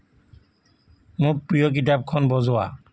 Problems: constant background noise